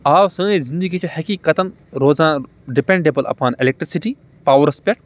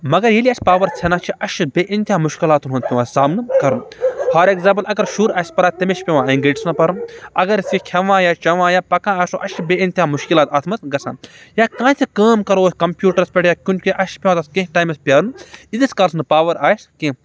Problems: background sounds at intervals